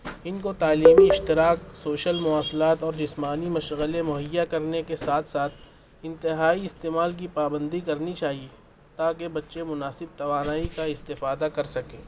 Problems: constant background noise